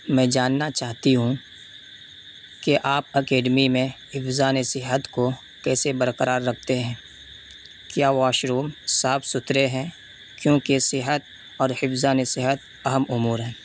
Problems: constant background noise